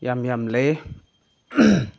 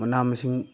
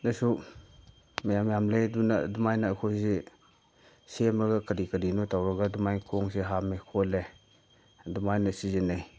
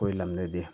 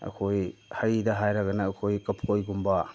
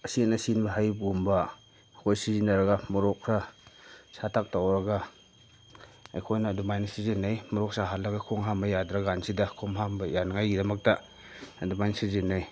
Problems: constant background noise